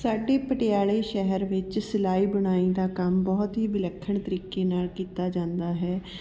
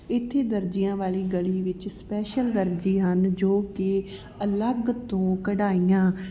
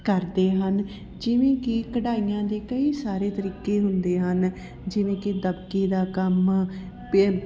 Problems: continuous background conversations